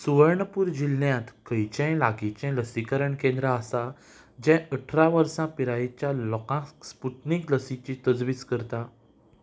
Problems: background sounds at intervals